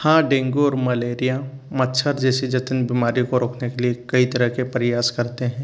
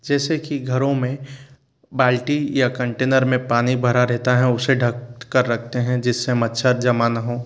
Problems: constant background noise